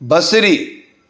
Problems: none marked